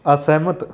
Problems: background sounds at intervals